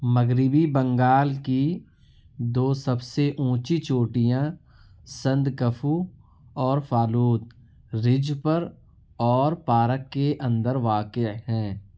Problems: none marked